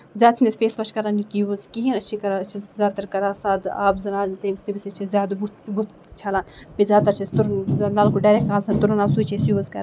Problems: constant background noise